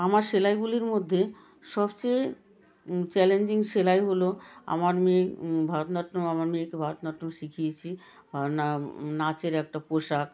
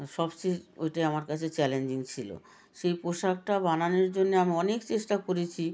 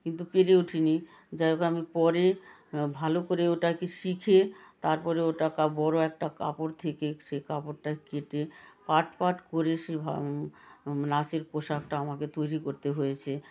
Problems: continuous background conversations